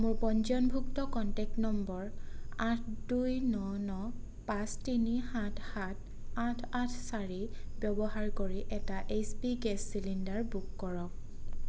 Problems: constant background noise